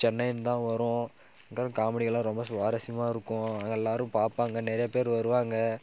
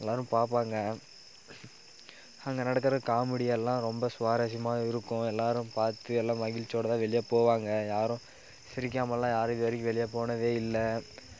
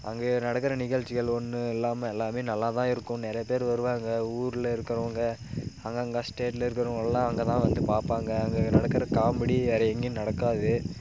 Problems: background sounds at intervals